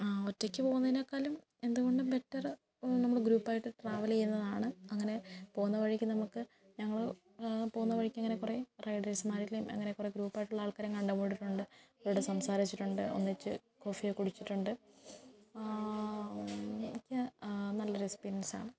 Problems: background conversations at intervals, low volume